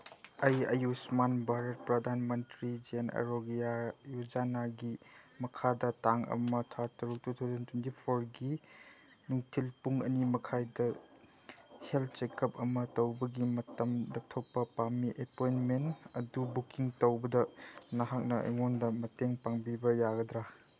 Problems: background sounds at intervals